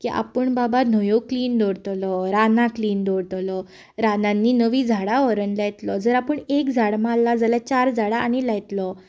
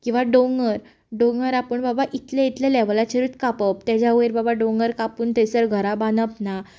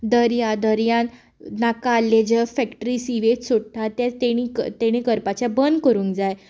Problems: background sounds at intervals